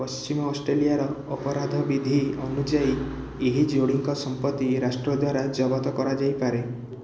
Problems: constant background noise